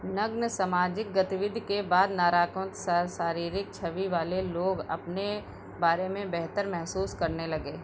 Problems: background sounds at intervals